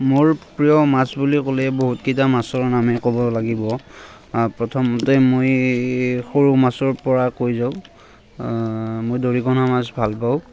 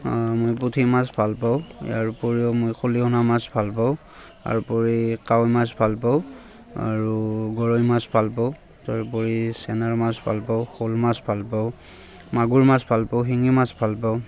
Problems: constant background noise, background conversations at intervals